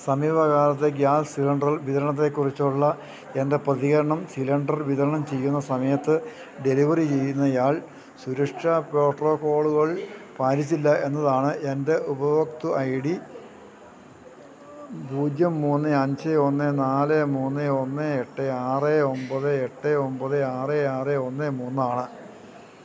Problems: none marked